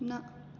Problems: constant background noise